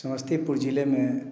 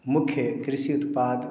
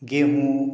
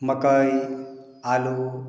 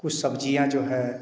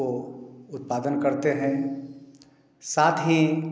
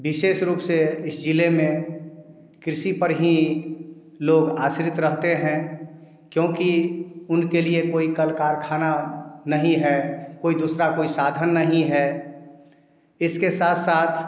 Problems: background sounds at intervals